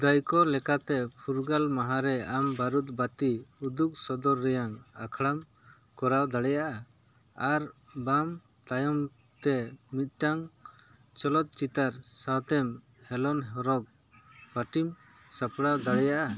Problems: none marked